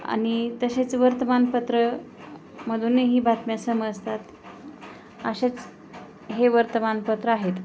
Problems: constant background noise, background conversations at intervals